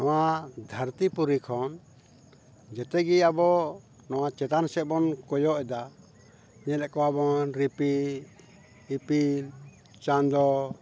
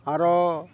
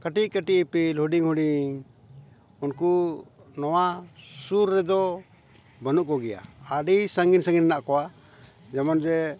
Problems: background conversations at intervals